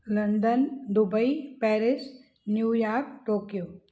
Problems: none marked